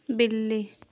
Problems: constant background noise